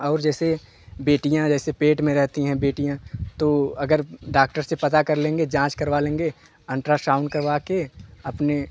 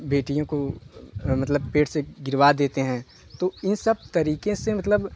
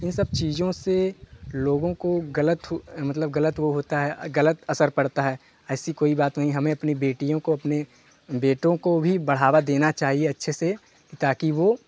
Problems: background sounds at intervals, continuous background conversations